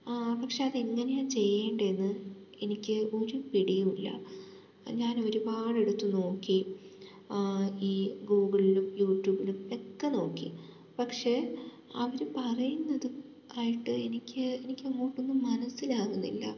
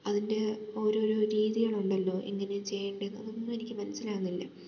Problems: low volume